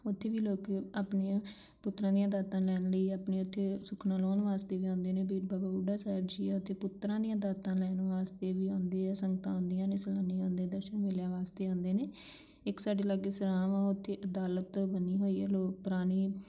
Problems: background sounds at intervals